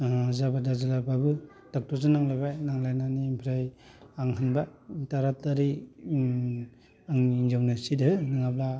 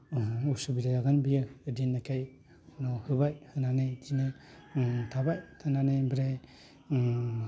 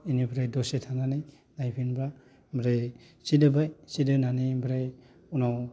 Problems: none marked